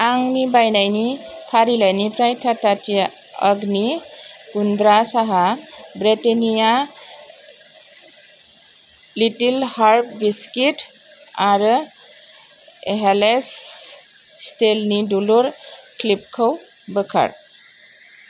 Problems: constant background noise